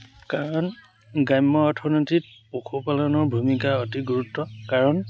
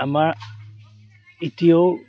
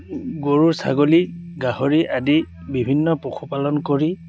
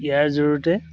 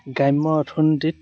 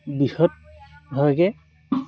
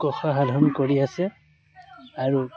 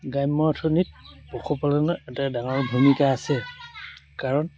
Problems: background sounds at intervals